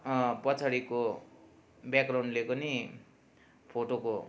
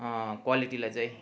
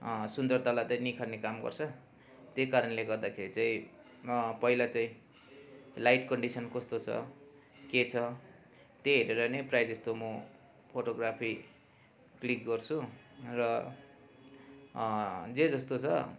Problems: constant background noise